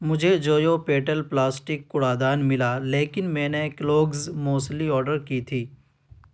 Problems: none marked